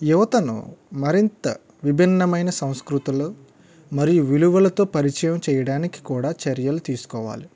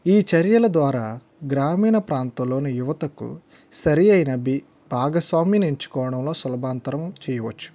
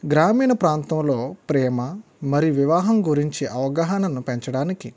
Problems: none marked